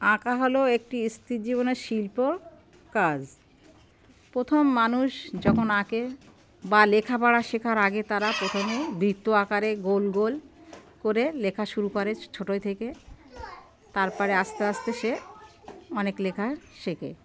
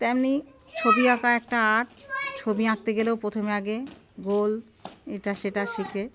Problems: none marked